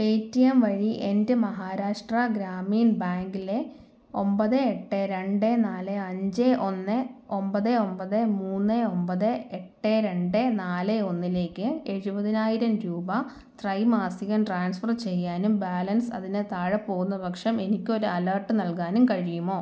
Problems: low volume